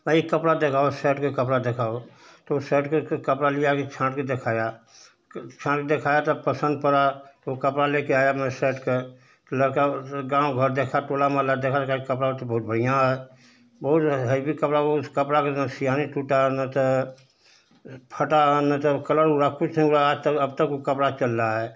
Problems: constant background noise